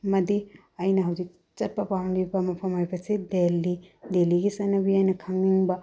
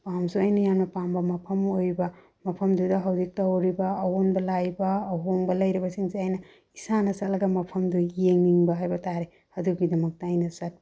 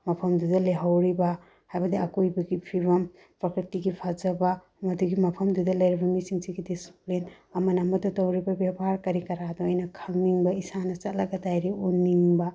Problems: low volume